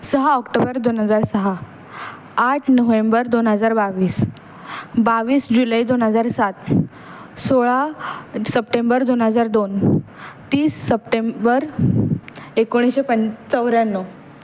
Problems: none marked